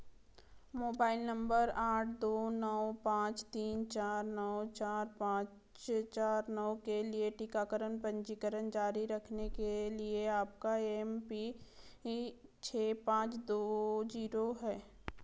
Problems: background sounds at intervals